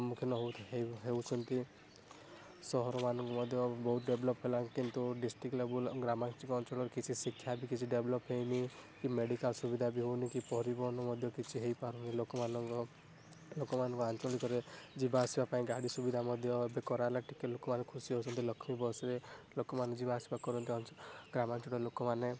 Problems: background sounds at intervals